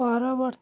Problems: continuous background conversations